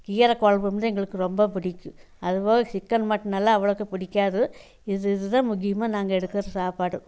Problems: none marked